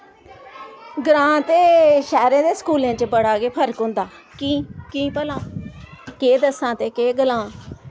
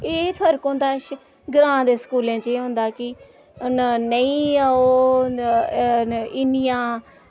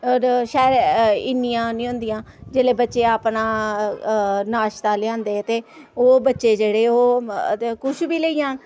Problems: constant background noise